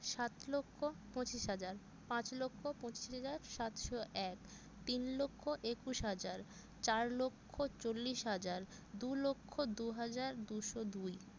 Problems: none marked